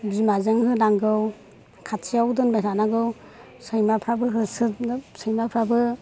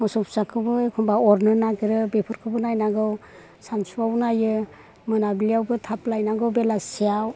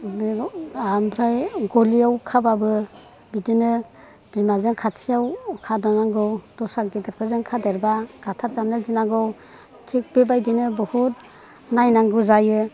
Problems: none marked